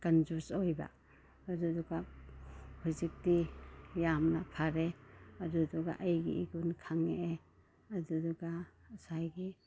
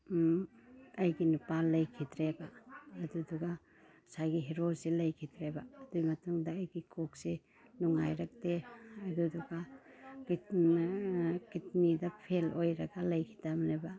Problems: none marked